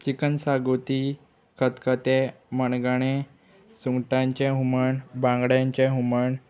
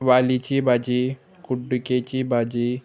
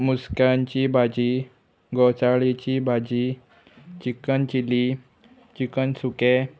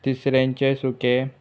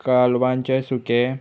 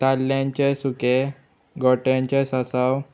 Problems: constant background noise